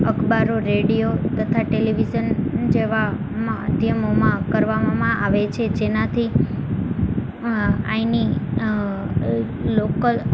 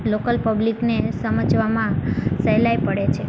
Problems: none marked